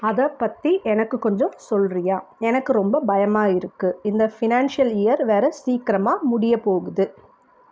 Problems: none marked